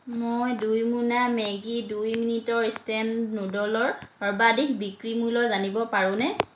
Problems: constant background noise